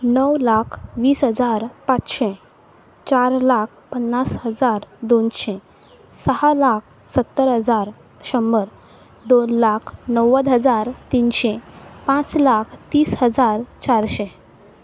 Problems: background sounds at intervals